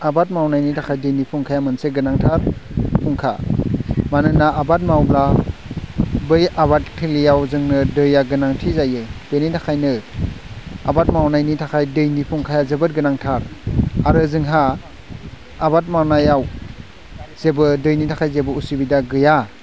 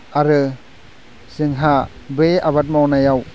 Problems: none marked